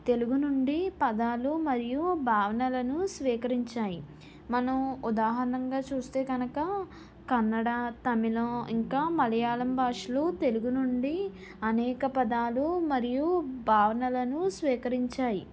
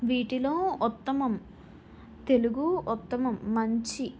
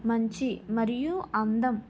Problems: background sounds at intervals